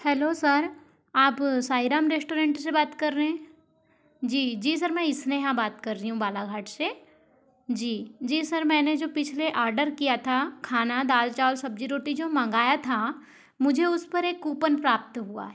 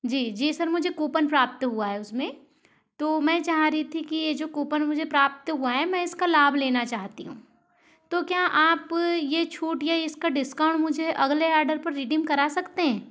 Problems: none marked